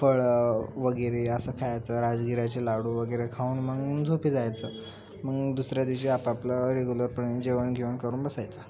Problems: constant background noise, continuous background conversations